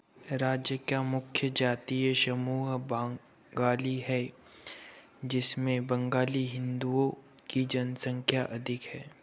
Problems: background sounds at intervals